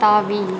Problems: constant background noise